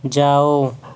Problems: constant background noise